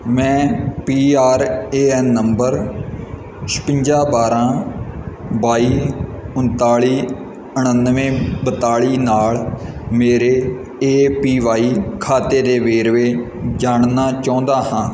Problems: none marked